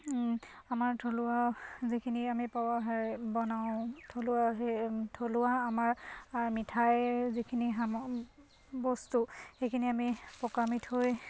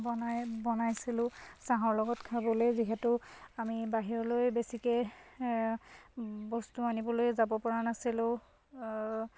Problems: constant background noise